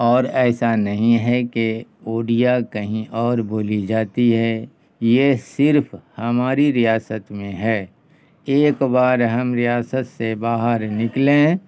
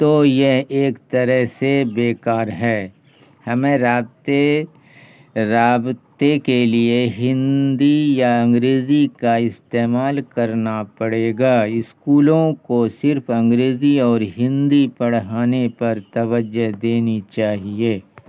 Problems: none marked